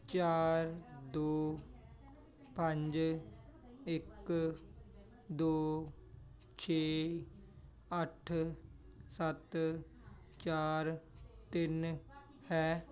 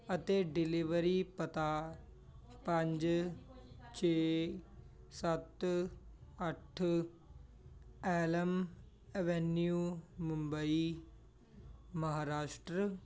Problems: continuous background conversations